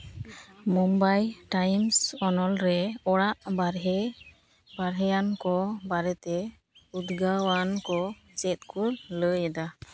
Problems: constant background noise, background conversations at intervals